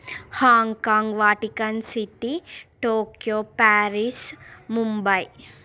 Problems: none marked